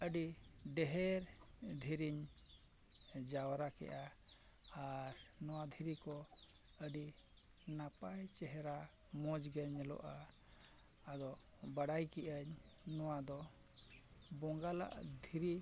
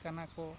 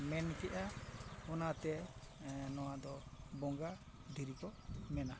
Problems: constant background noise, low volume